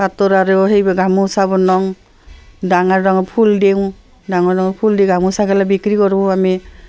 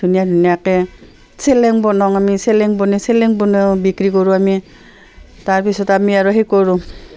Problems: constant background noise, background conversations at intervals